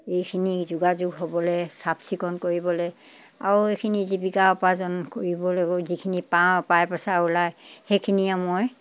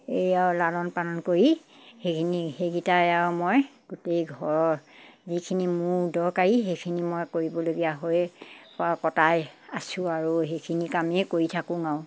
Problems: background sounds at intervals